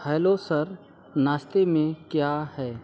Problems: constant background noise